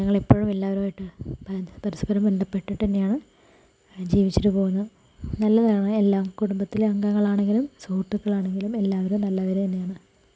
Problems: low volume